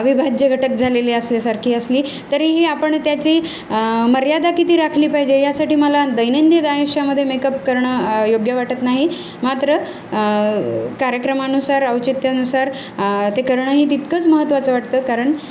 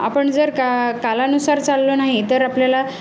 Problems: none marked